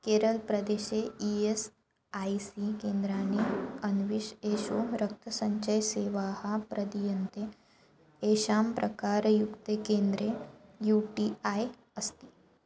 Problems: background sounds at intervals